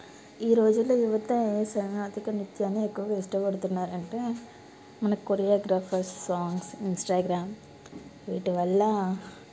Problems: background sounds at intervals